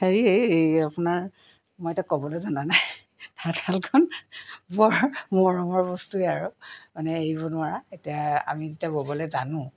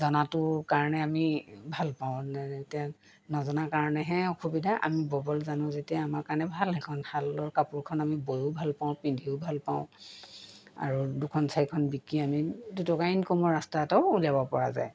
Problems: background sounds at intervals